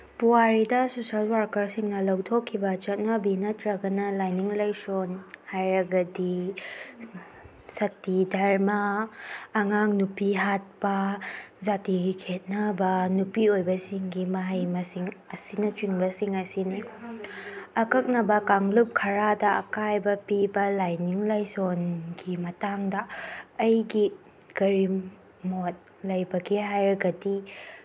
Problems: none marked